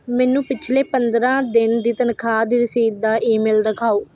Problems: constant background noise